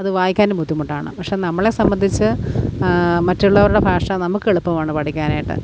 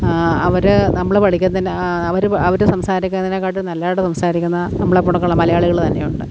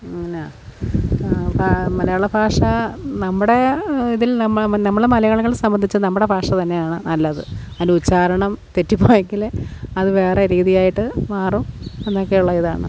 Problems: background sounds at intervals